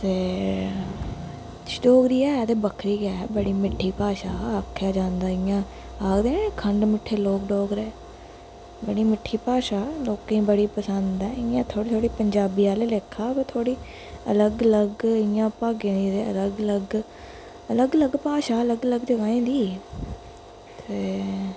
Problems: constant background noise, echo